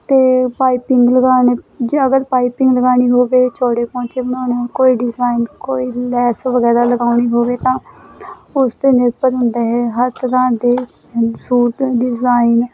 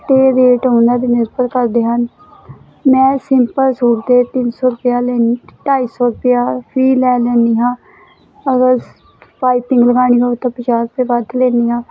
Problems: constant background noise